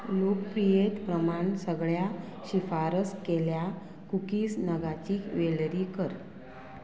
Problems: none marked